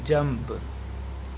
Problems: constant background noise